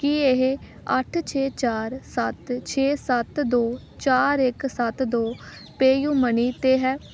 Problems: background sounds at intervals